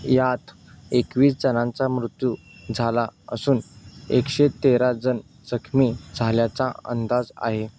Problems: background sounds at intervals